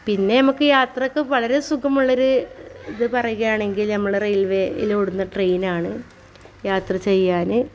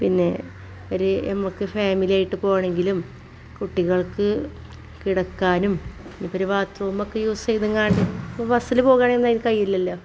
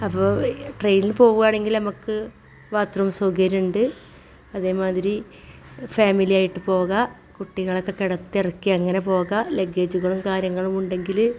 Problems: background sounds at intervals, background conversations at intervals